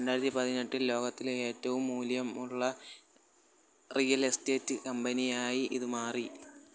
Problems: none marked